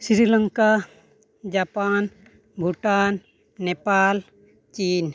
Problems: none marked